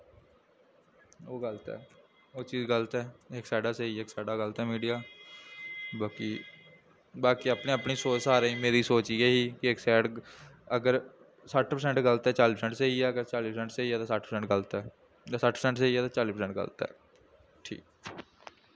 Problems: none marked